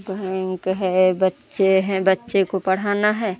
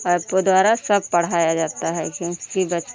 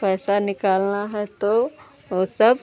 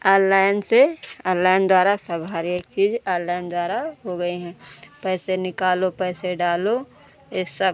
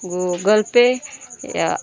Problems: none marked